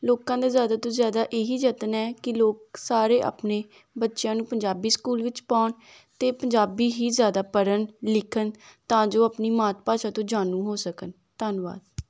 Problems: none marked